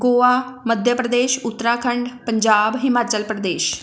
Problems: none marked